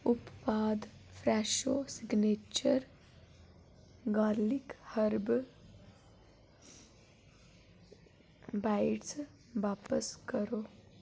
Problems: none marked